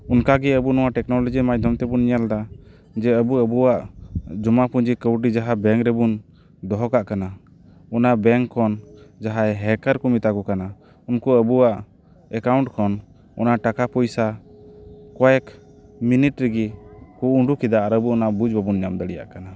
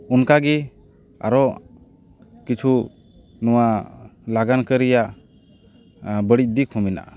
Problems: background sounds at intervals